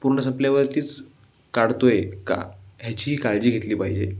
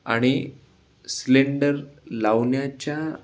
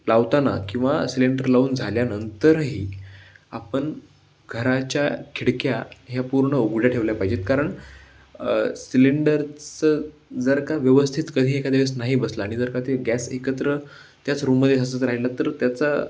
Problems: background sounds at intervals